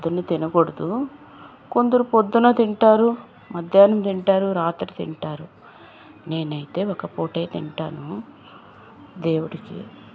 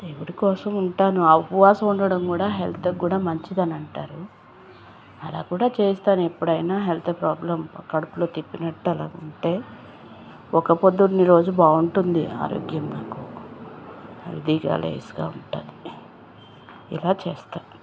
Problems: constant background noise